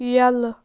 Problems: none marked